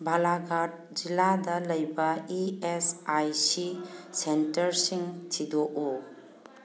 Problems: background sounds at intervals